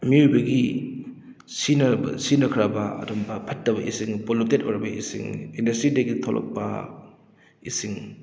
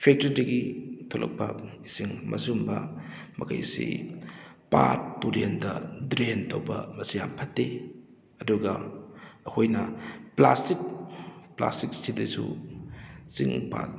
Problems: background sounds at intervals